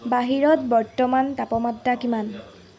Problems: none marked